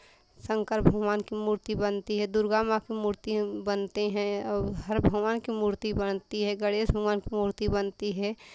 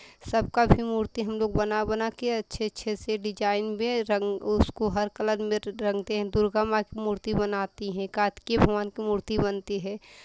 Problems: constant background noise